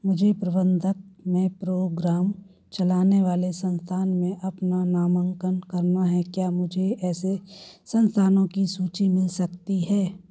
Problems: background sounds at intervals